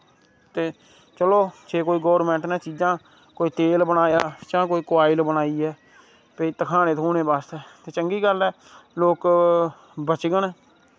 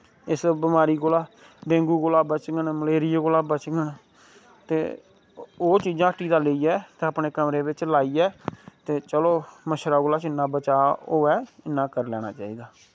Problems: none marked